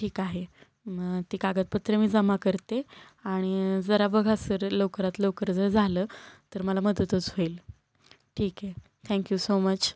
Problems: constant background noise